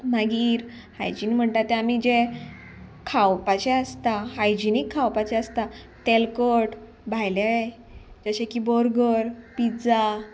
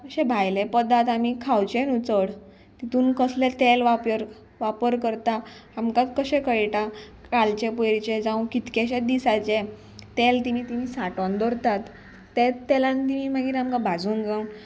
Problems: none marked